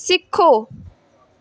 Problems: background sounds at intervals